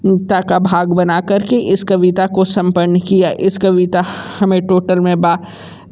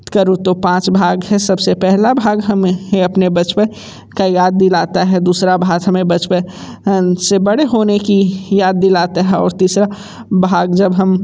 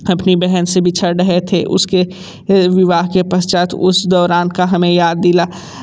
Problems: constant background noise